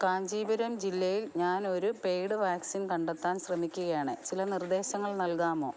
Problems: low volume